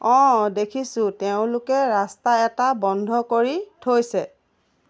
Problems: none marked